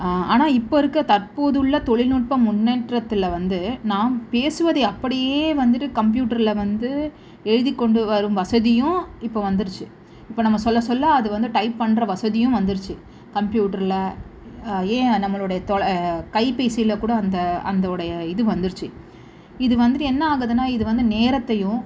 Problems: none marked